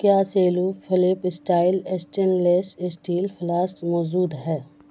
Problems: constant background noise